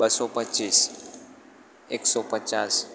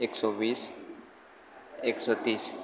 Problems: constant background noise